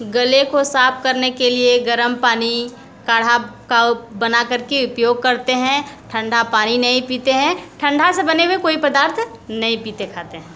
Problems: constant background noise